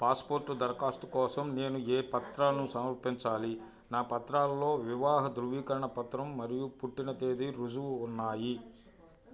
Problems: background conversations at intervals